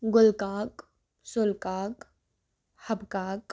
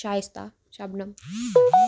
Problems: none marked